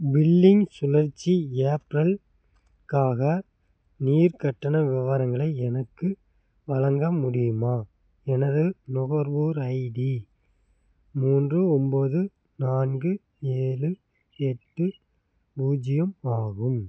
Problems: none marked